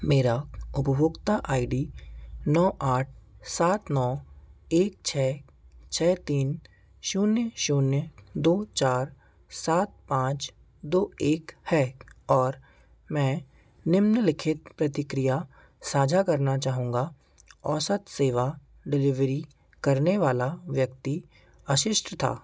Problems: none marked